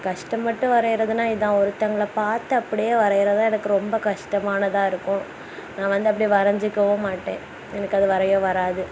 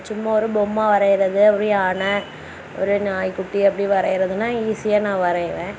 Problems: constant background noise